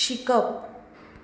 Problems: background sounds at intervals